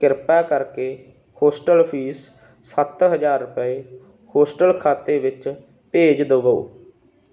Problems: background sounds at intervals